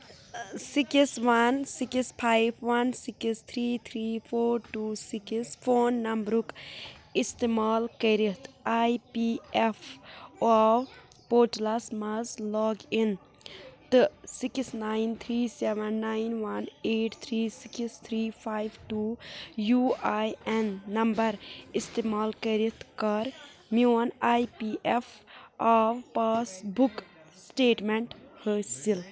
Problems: background sounds at intervals, background conversations at intervals